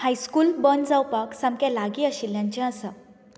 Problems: background sounds at intervals